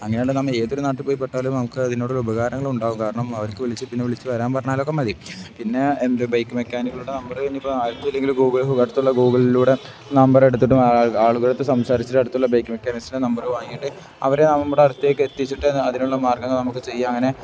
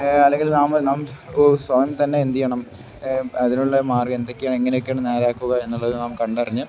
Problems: background sounds at intervals